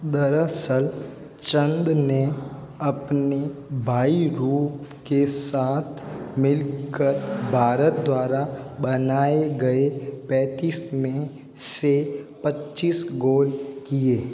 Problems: constant background noise